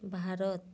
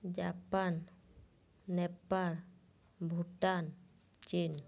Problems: low volume